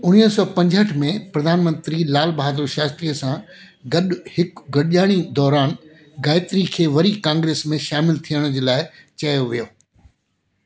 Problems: constant background noise